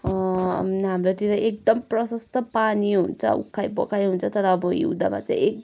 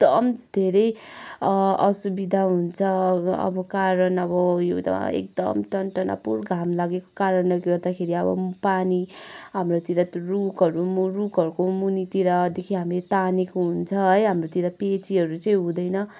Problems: none marked